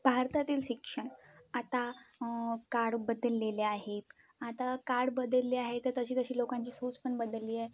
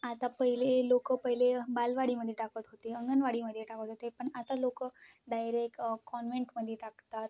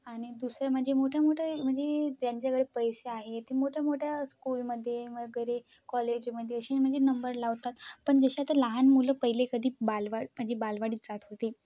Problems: none marked